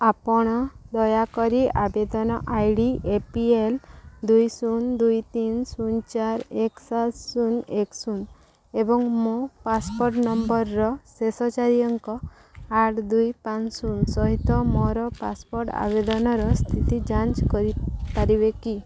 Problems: background sounds at intervals